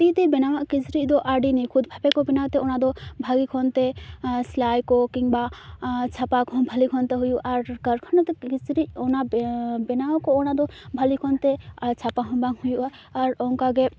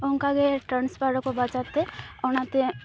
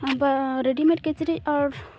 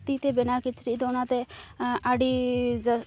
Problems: constant background noise, background conversations at intervals